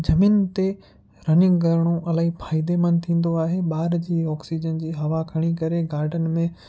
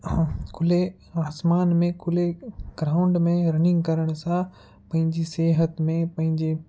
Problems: constant background noise